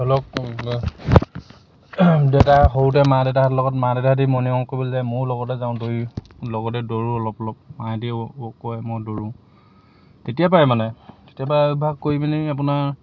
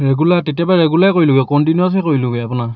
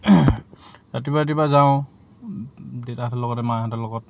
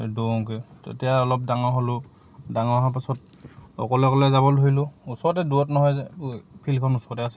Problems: background sounds at intervals